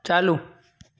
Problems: none marked